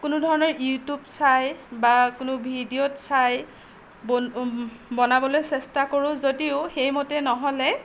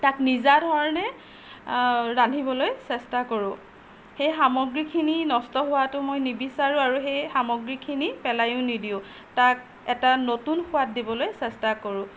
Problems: none marked